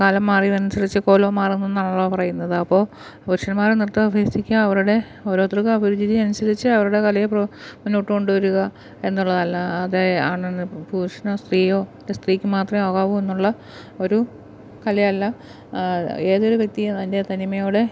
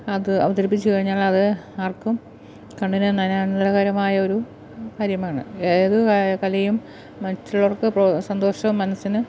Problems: background sounds at intervals